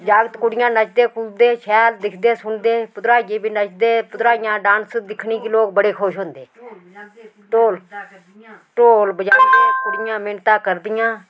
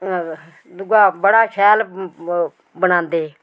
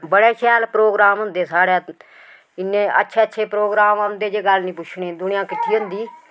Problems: constant background noise, background conversations at intervals